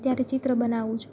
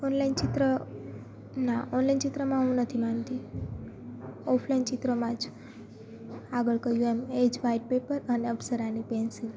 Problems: constant background noise, background conversations at intervals